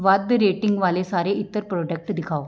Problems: background sounds at intervals